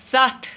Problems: none marked